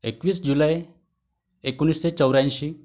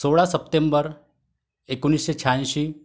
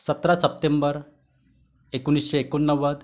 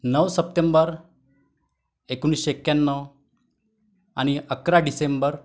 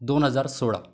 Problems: none marked